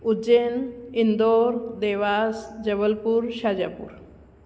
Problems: constant background noise, echo